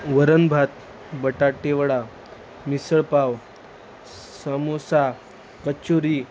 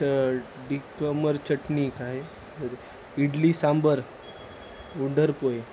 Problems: none marked